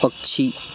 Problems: constant background noise